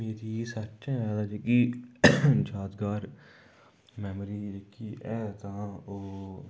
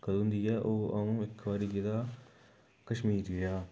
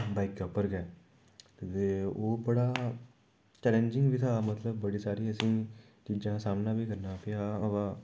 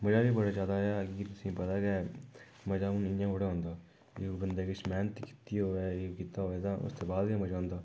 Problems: background sounds at intervals